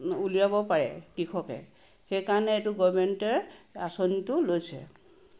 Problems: background sounds at intervals